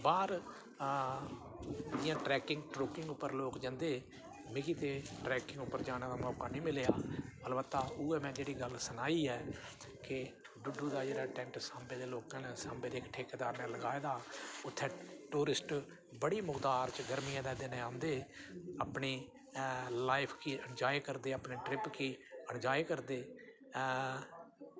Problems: none marked